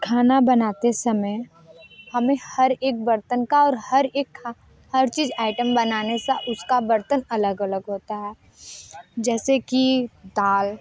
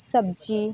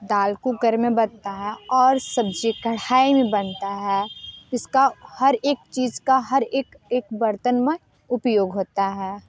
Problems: none marked